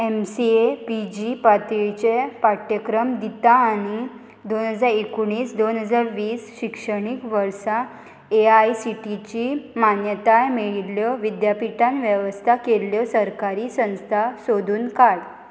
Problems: constant background noise